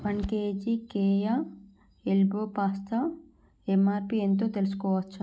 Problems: low volume